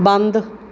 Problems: none marked